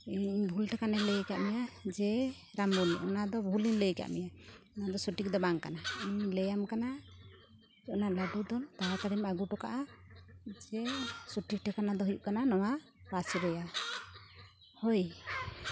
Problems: constant background noise